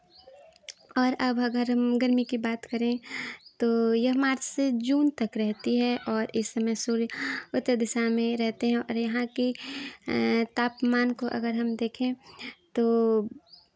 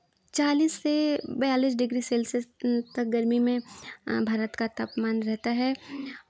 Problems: none marked